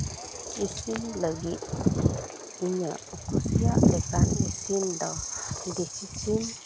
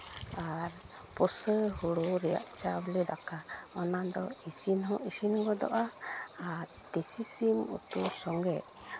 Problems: constant background noise